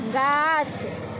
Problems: none marked